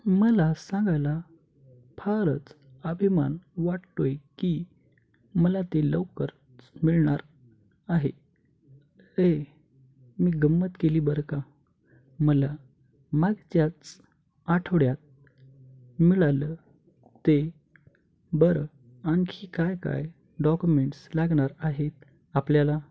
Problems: none marked